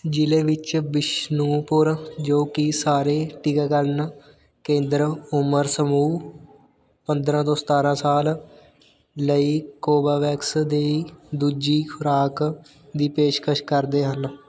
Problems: none marked